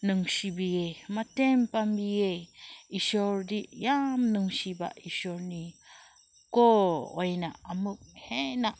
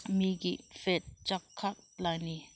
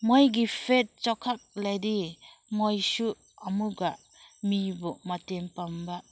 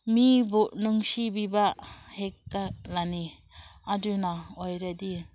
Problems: constant background noise